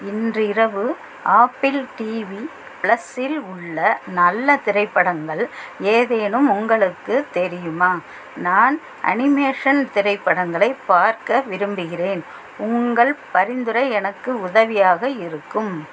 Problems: constant background noise